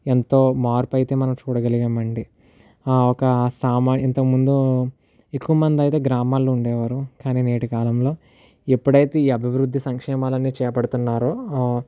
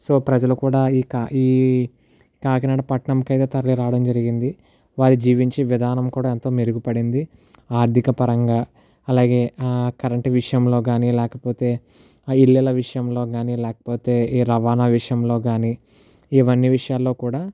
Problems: none marked